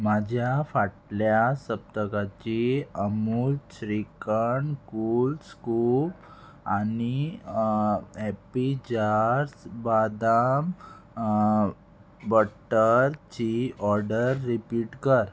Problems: constant background noise